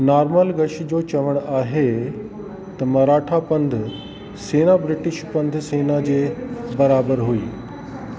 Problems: constant background noise, echo